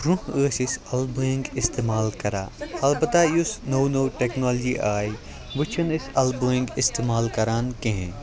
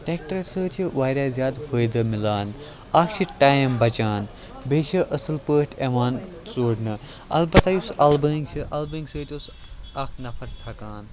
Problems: background sounds at intervals, continuous background conversations